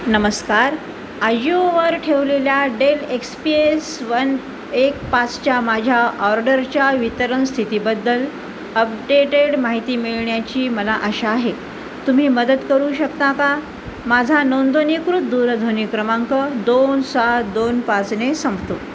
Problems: constant background noise